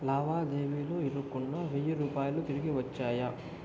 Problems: low volume